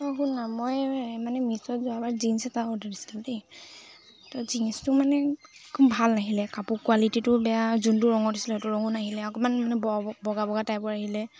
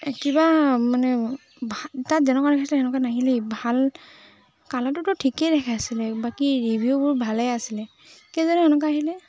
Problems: constant background noise, background conversations at intervals